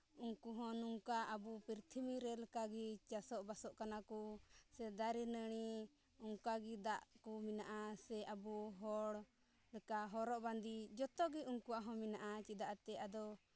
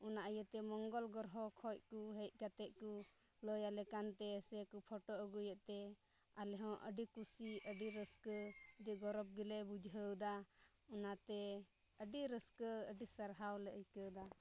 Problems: low volume